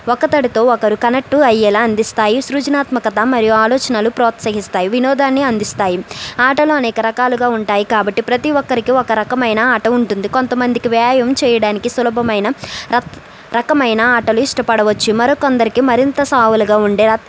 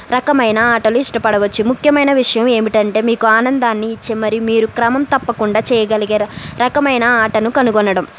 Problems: none marked